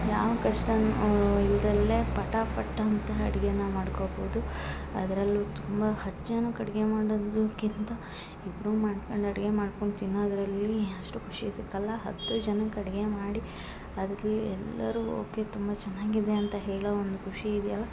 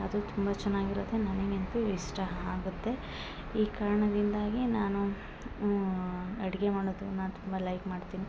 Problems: background sounds at intervals